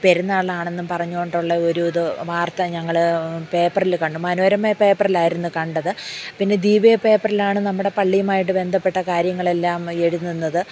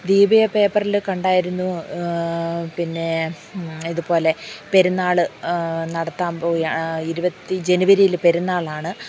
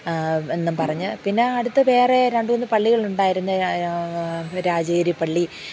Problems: low volume